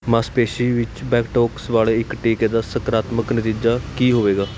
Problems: none marked